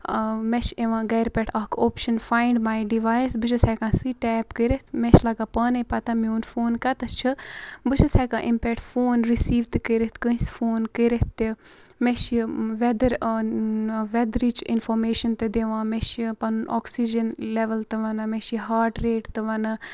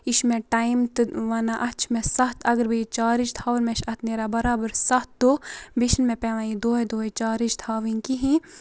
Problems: constant background noise